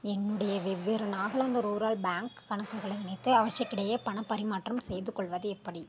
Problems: none marked